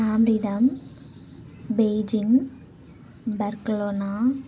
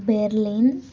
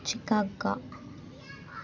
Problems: constant background noise, continuous background conversations